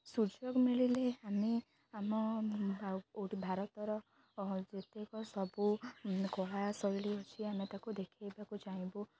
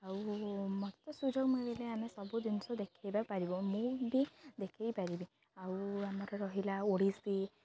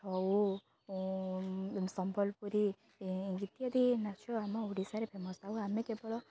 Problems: none marked